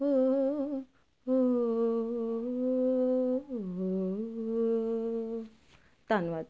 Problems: constant background noise